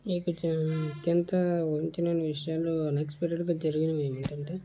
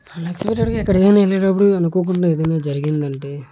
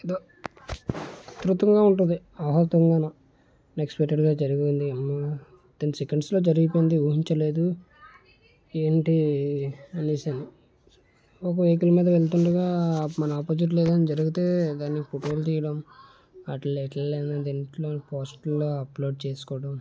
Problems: constant background noise